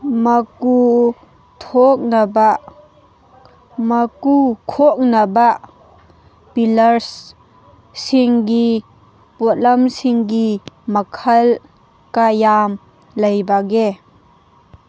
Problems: background sounds at intervals